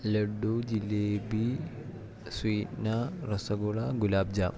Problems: constant background noise